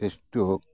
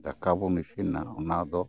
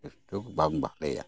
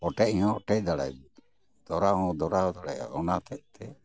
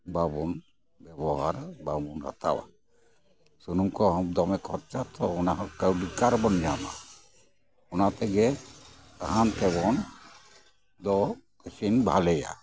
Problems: background sounds at intervals, background conversations at intervals